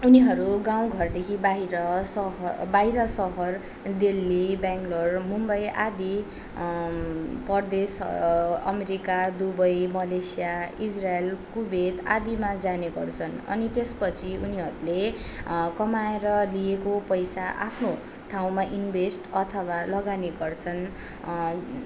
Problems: constant background noise